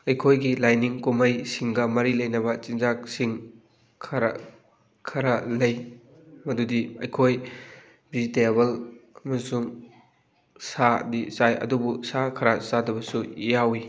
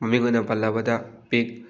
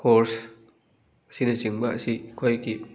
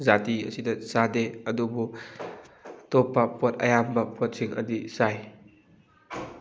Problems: background sounds at intervals, background conversations at intervals